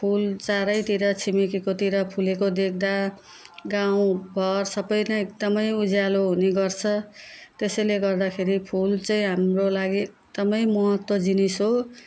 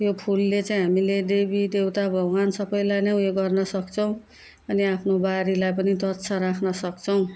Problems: constant background noise